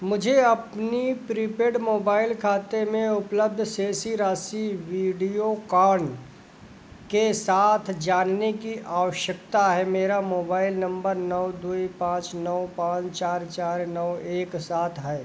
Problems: constant background noise